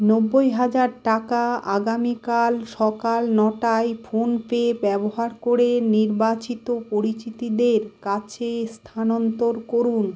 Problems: constant background noise